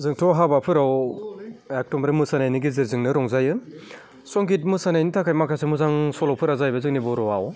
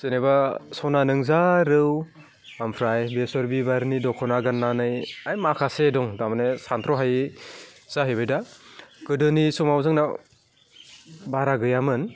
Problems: none marked